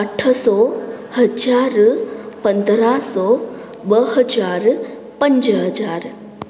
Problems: constant background noise, echo